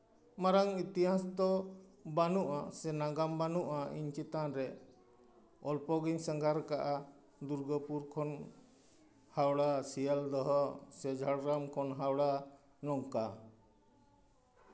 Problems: none marked